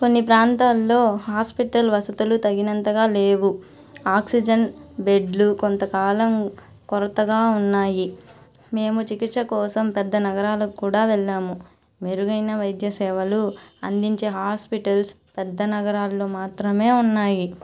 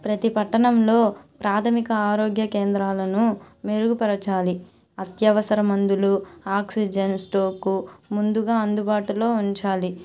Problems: none marked